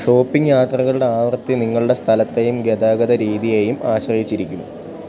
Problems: none marked